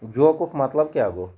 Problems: none marked